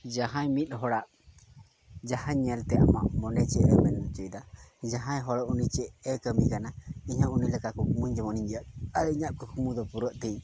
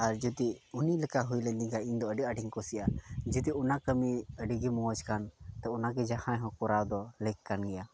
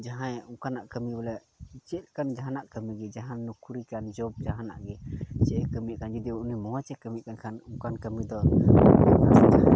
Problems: constant background noise